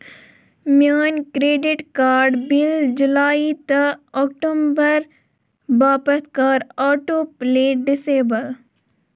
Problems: none marked